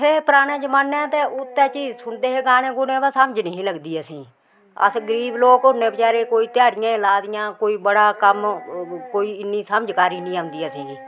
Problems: background sounds at intervals